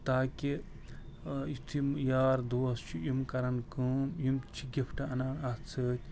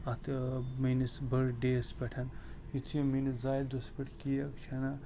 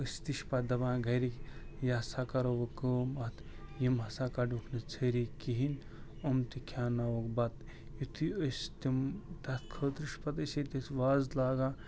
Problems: constant background noise